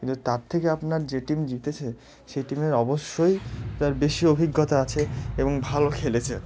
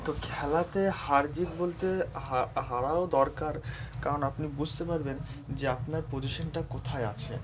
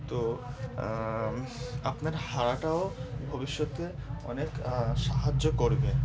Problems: none marked